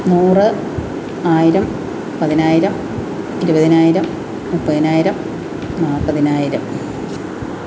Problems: constant background noise